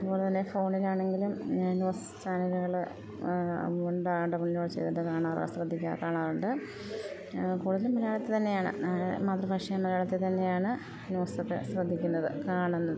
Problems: constant background noise